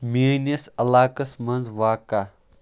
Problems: background sounds at intervals